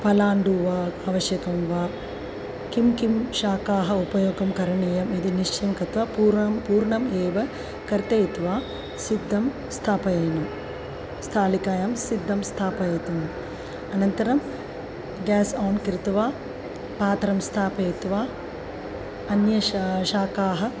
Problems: constant background noise, continuous background conversations